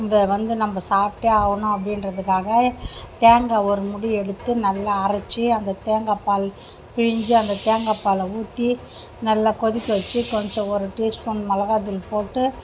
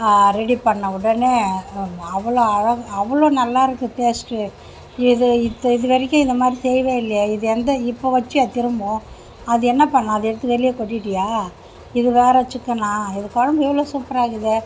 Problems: none marked